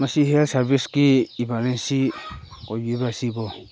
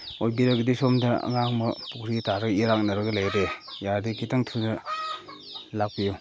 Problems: constant background noise